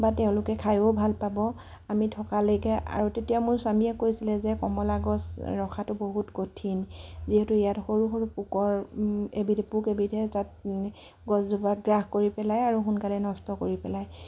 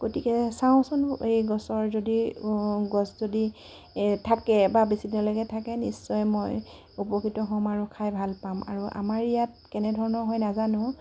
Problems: constant background noise